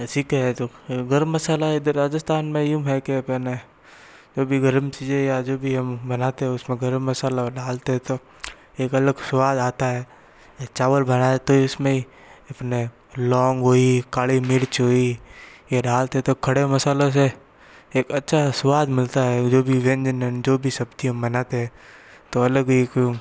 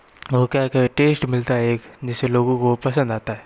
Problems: constant background noise